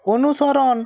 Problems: none marked